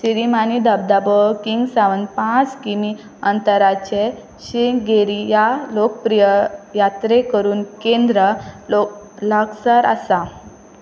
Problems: constant background noise